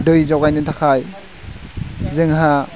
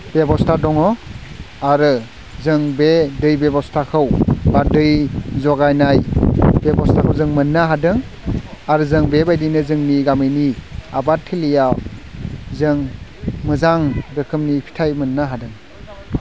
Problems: none marked